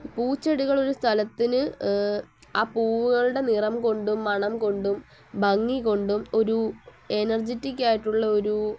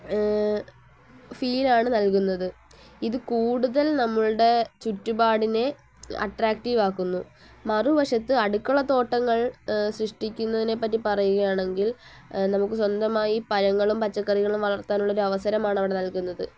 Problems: low volume